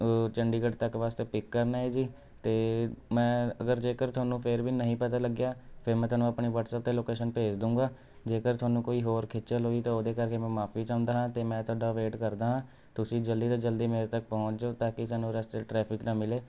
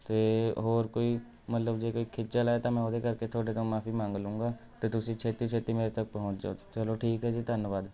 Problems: constant background noise